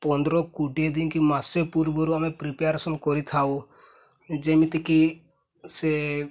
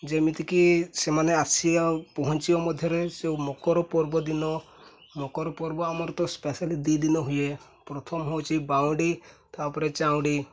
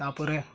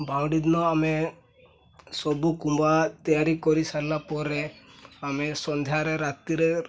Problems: none marked